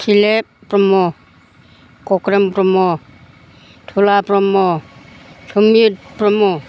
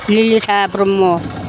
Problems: constant background noise